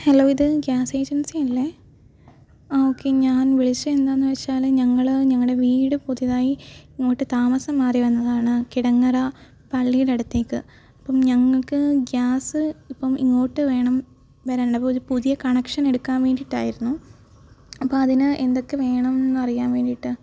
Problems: background sounds at intervals